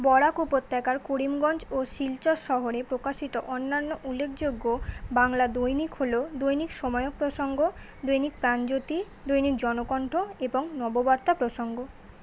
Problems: none marked